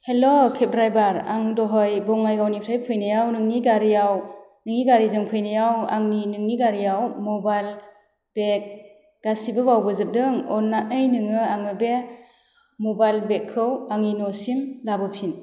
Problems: none marked